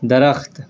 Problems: none marked